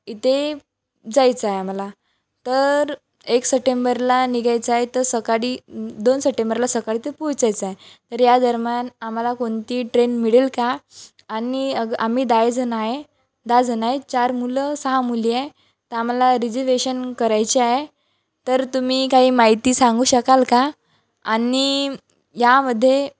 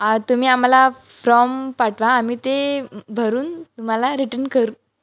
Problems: none marked